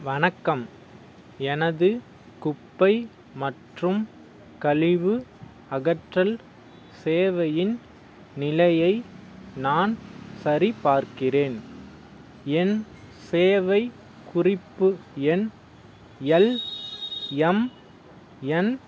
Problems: background sounds at intervals